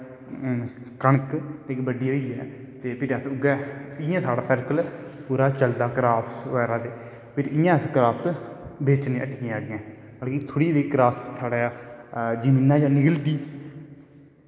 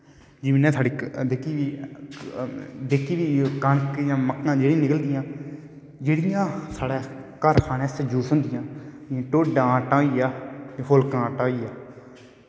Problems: background sounds at intervals, echo